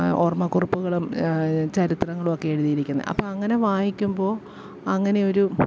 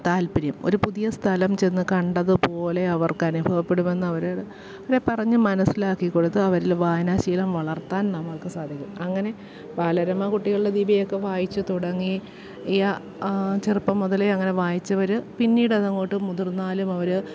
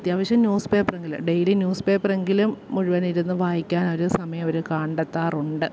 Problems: background sounds at intervals